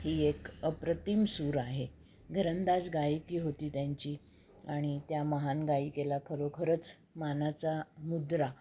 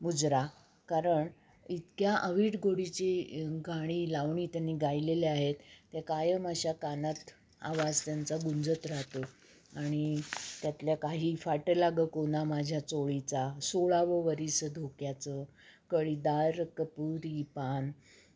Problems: background sounds at intervals